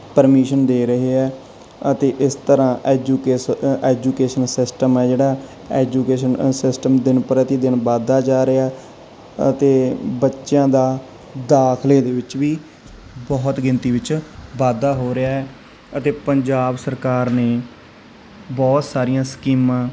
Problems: background sounds at intervals